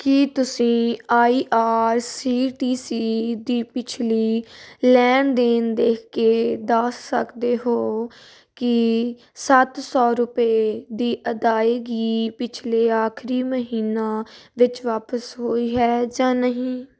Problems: constant background noise